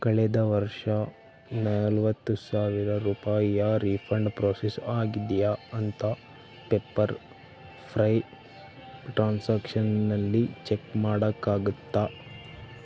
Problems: constant background noise